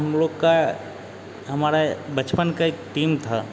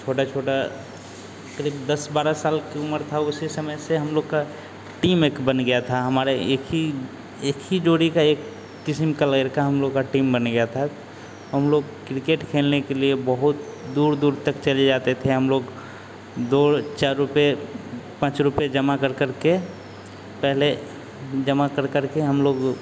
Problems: constant background noise